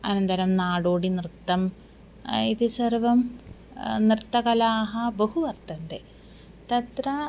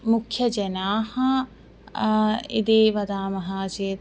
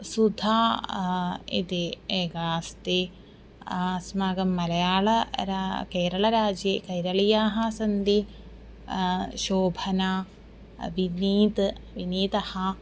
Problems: constant background noise